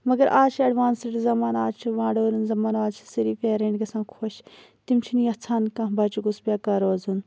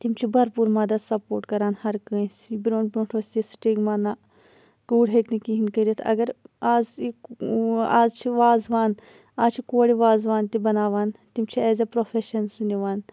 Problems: none marked